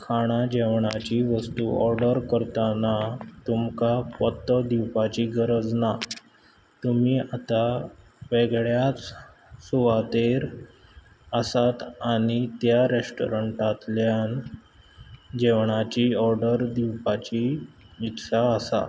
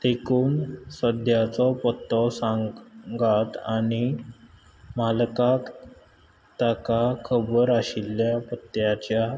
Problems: background sounds at intervals